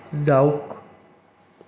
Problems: none marked